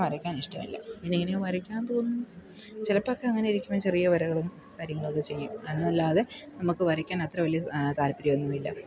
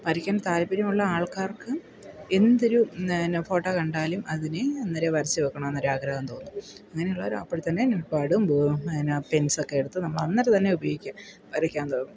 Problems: background sounds at intervals